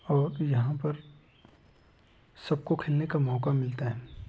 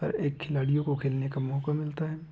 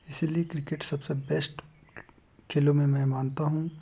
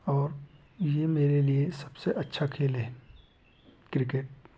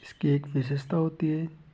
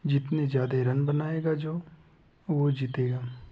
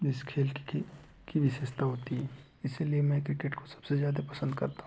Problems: none marked